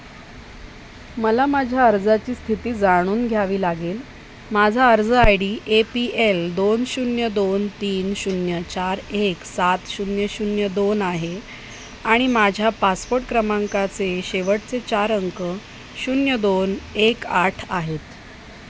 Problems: constant background noise